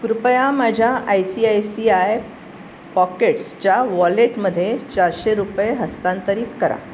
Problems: constant background noise